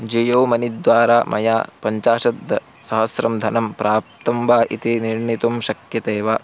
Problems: constant background noise